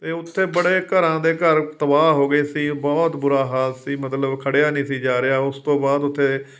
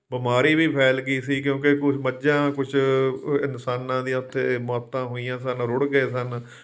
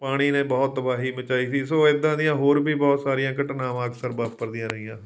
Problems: background sounds at intervals